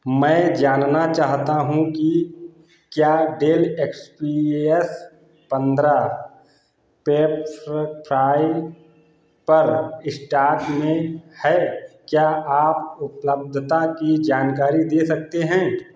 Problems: none marked